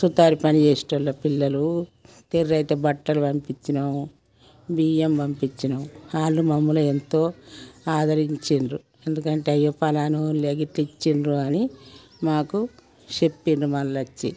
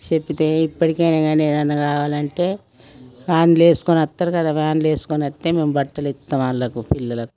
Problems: background sounds at intervals